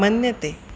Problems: constant background noise